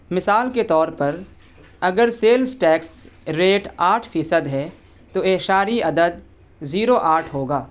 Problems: constant background noise